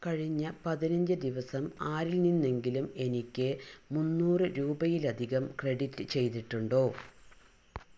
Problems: low volume